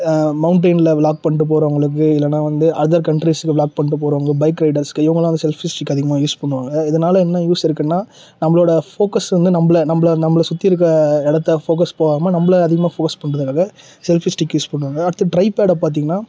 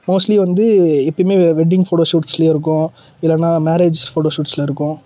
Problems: none marked